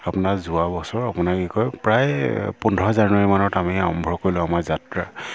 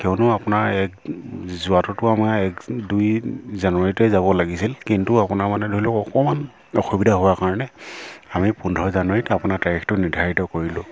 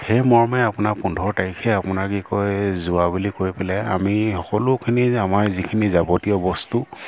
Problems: background sounds at intervals